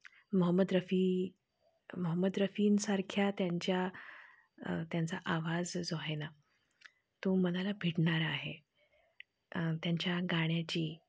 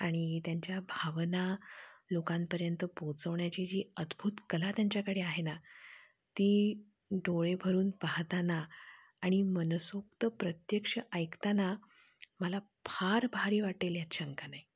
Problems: constant background noise, low volume